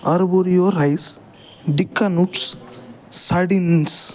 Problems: background sounds at intervals